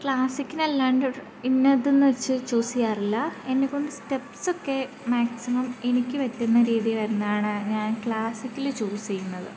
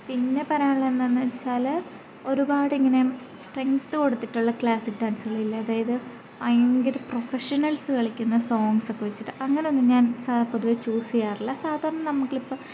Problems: none marked